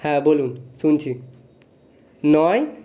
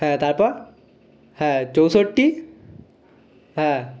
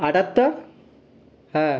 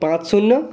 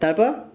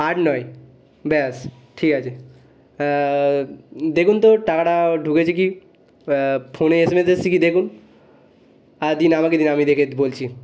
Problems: constant background noise